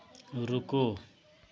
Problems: none marked